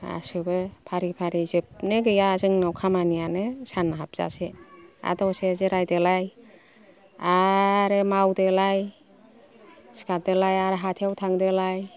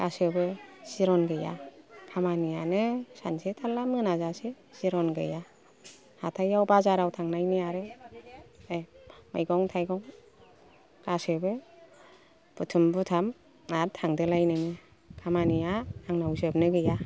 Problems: low volume